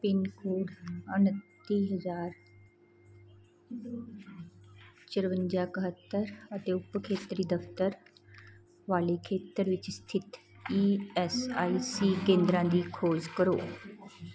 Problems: none marked